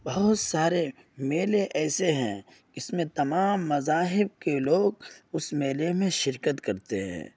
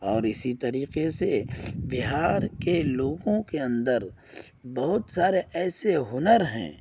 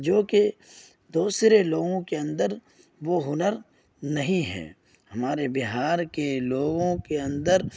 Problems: none marked